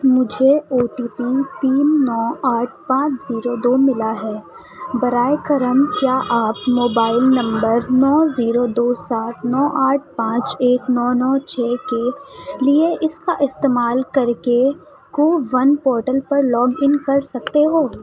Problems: constant background noise, continuous background conversations, low volume